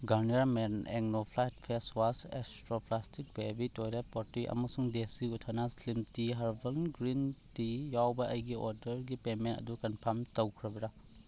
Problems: constant background noise